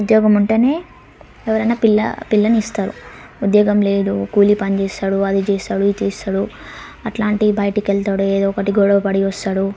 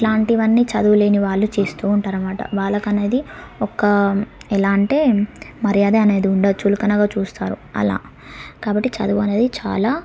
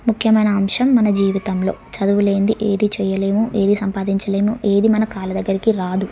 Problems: background sounds at intervals, background conversations at intervals